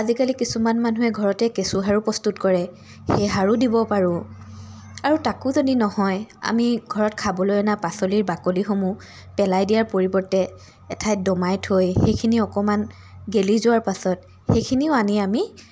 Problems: constant background noise